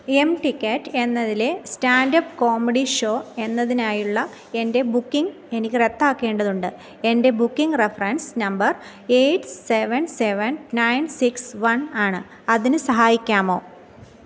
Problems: none marked